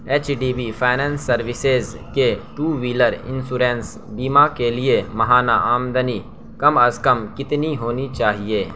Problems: constant background noise